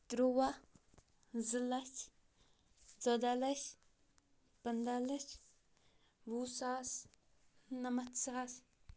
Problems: none marked